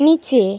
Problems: none marked